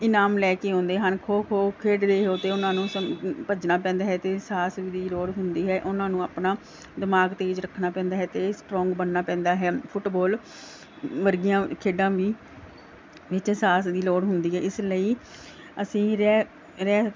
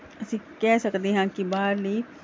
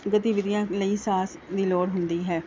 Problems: none marked